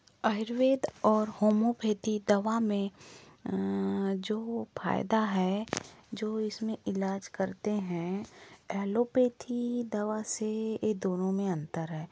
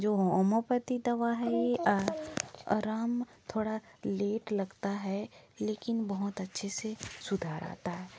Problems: none marked